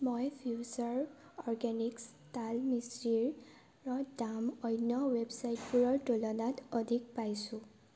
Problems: constant background noise